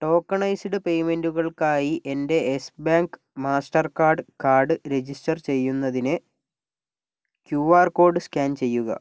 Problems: none marked